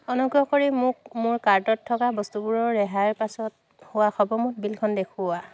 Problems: constant background noise